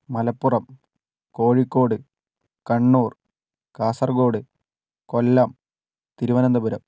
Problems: none marked